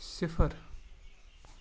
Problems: none marked